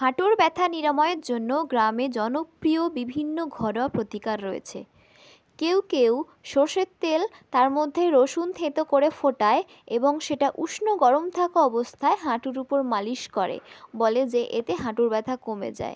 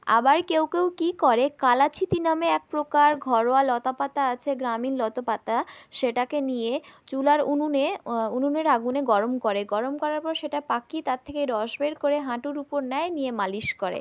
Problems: background sounds at intervals